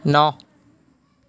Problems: background conversations at intervals